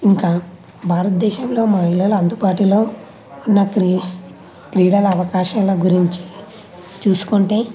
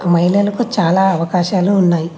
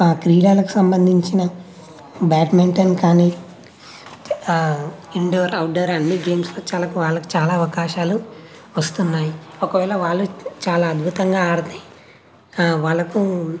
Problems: none marked